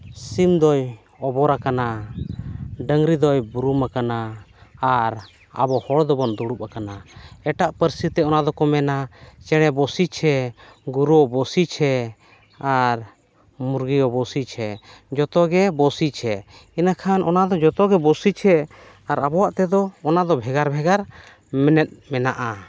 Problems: none marked